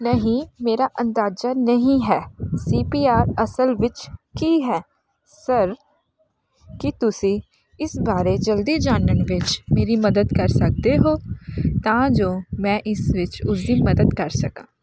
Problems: none marked